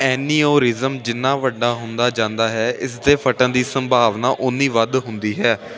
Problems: none marked